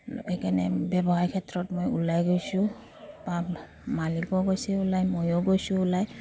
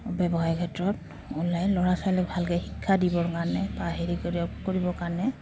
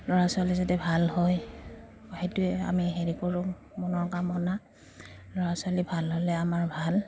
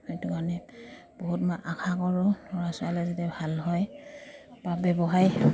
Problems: low volume